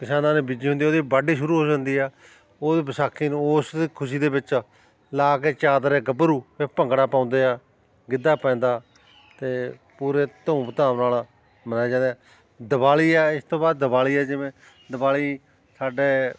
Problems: constant background noise, continuous background conversations